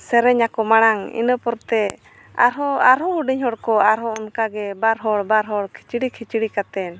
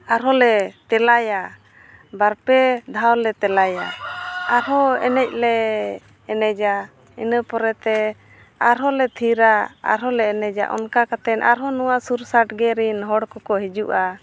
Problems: none marked